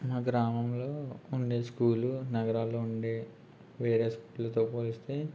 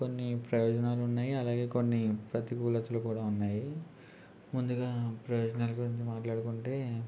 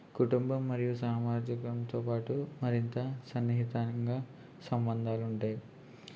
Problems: constant background noise, low volume